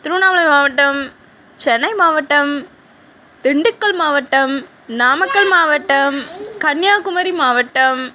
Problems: background conversations at intervals